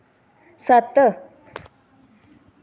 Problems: none marked